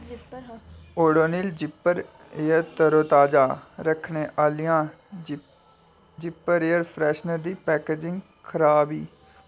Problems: constant background noise